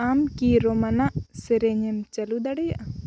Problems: constant background noise